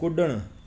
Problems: constant background noise